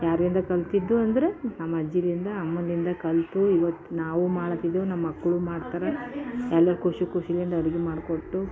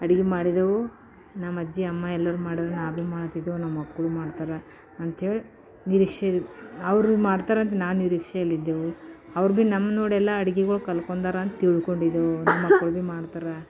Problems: background sounds at intervals